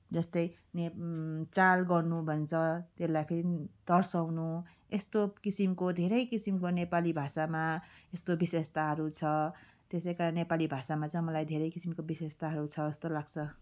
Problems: none marked